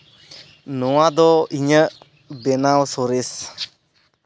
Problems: none marked